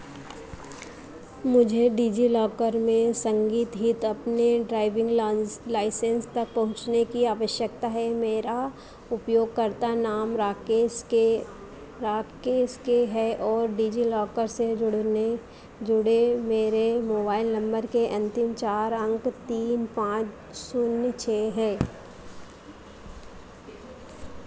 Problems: none marked